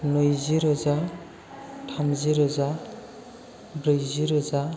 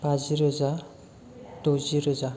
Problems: constant background noise